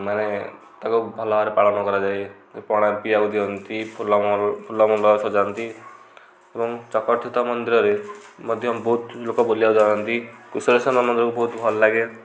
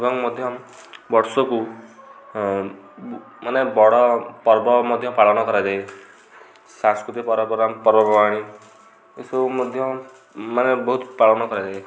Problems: low volume